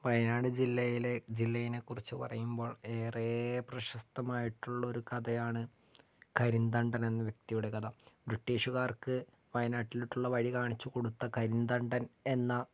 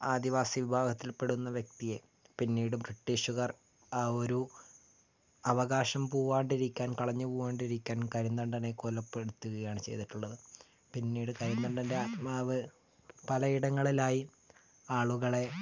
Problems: low volume